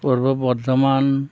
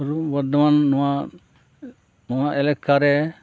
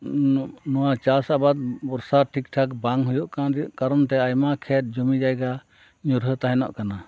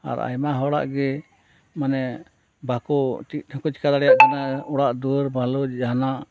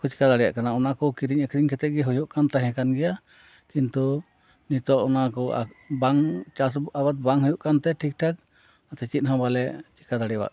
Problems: constant background noise